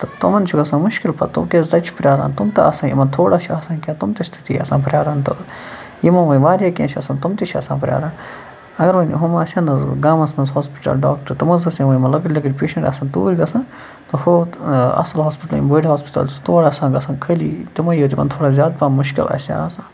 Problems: constant background noise